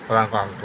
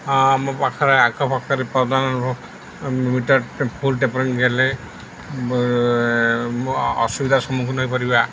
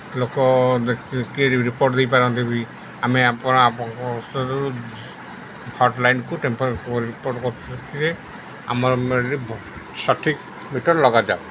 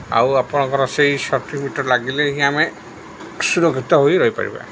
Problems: none marked